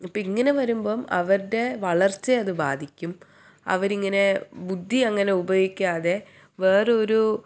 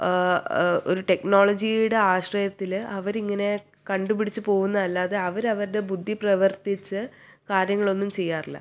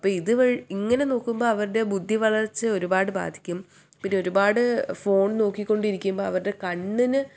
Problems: none marked